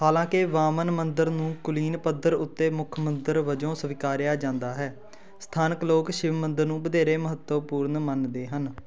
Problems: background conversations at intervals